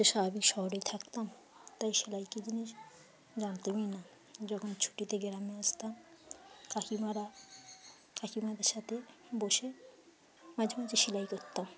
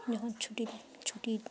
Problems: constant background noise, continuous background conversations, low volume